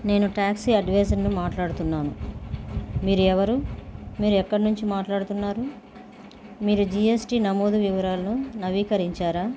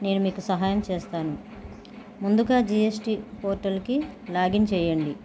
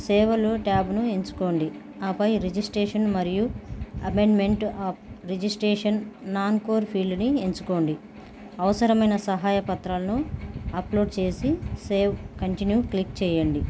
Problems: background sounds at intervals